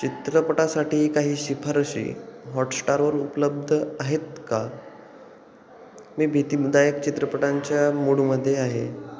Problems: constant background noise, continuous background conversations